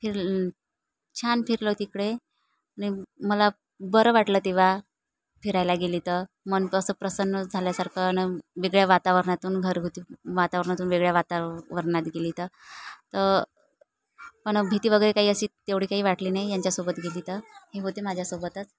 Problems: none marked